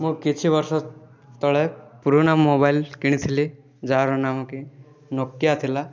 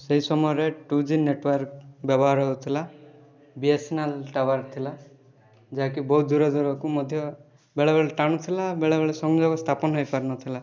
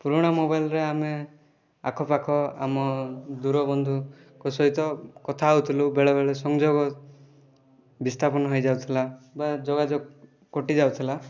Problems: background conversations at intervals